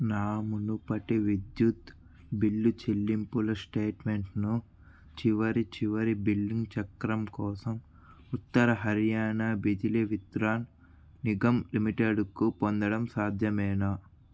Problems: constant background noise